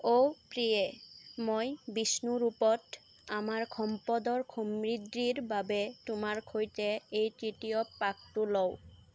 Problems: constant background noise